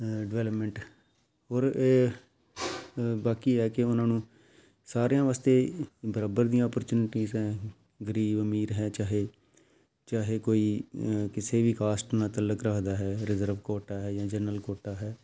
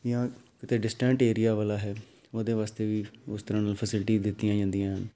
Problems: none marked